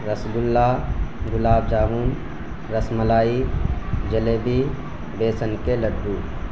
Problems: constant background noise